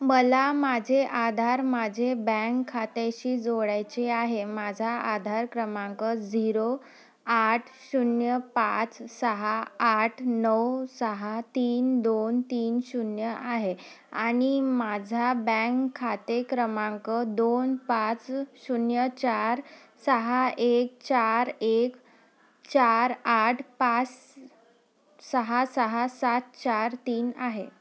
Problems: none marked